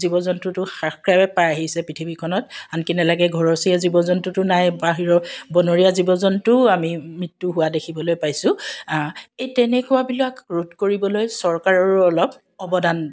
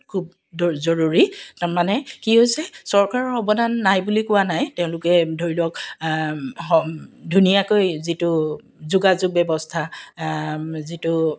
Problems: background sounds at intervals